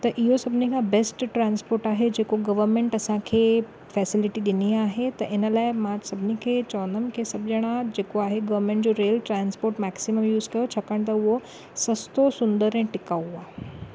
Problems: none marked